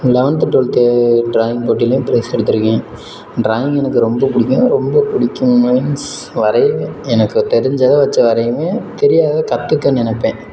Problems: background sounds at intervals